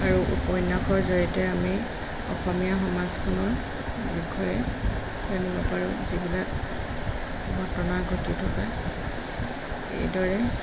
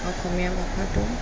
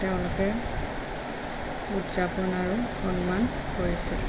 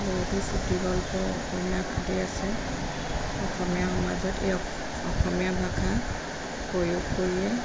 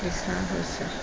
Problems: none marked